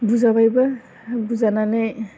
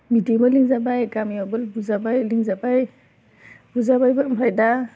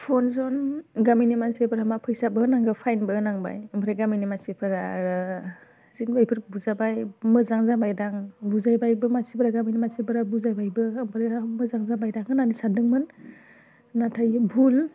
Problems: none marked